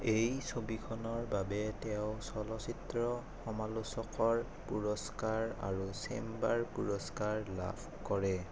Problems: constant background noise